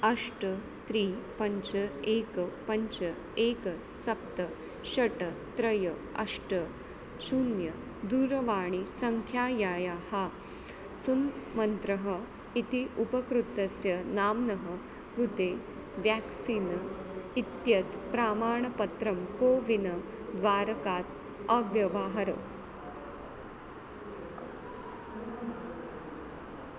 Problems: constant background noise